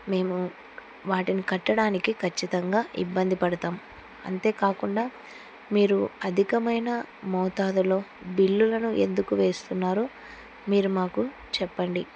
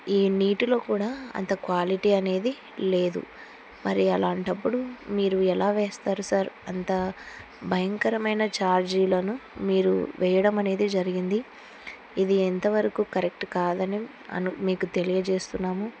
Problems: none marked